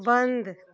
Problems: constant background noise